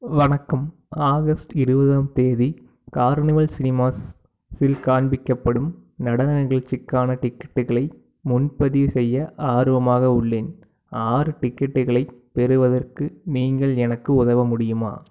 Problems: background sounds at intervals